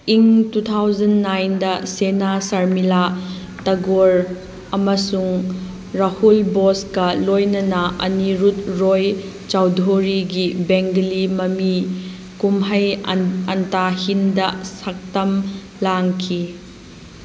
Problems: background sounds at intervals